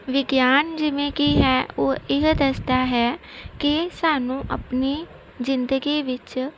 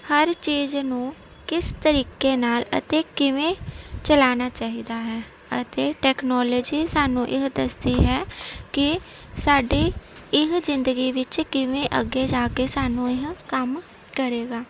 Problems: none marked